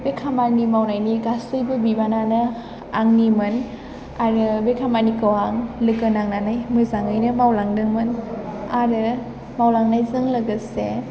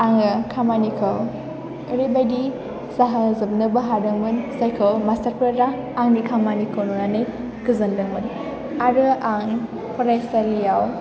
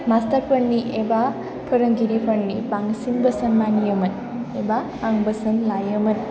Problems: constant background noise